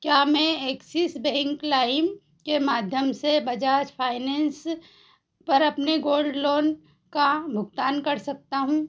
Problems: none marked